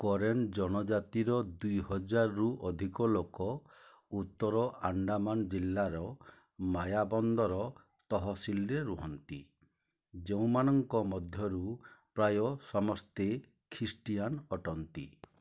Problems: low volume